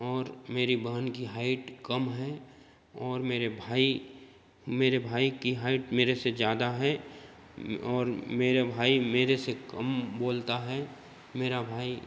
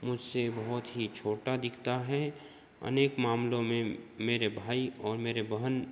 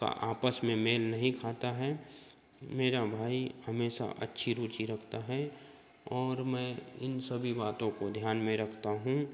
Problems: background sounds at intervals, background conversations at intervals